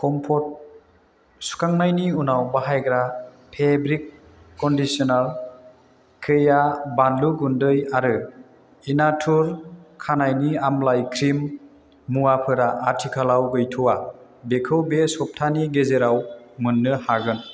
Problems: none marked